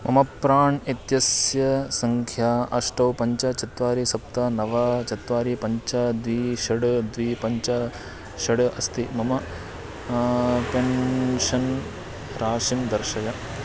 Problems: background sounds at intervals